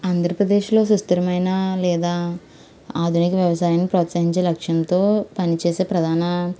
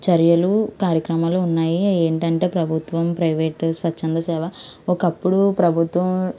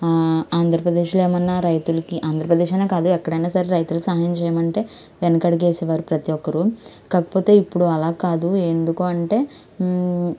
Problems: constant background noise